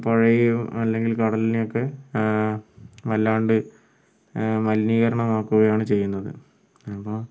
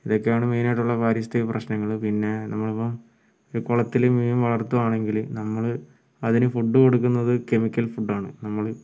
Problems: low volume